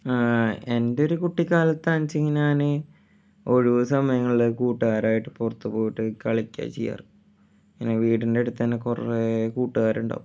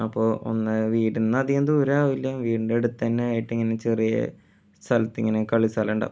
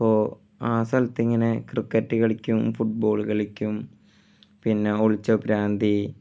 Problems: none marked